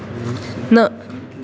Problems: constant background noise